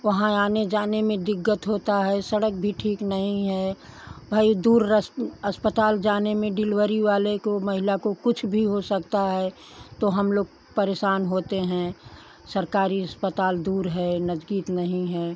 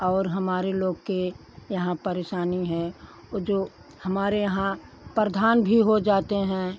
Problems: none marked